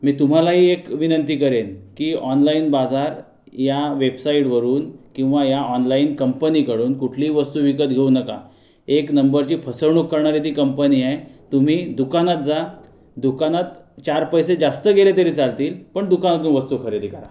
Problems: background sounds at intervals